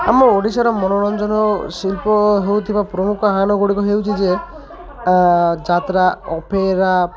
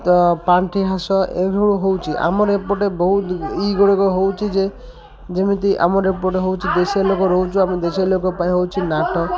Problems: constant background noise, continuous background conversations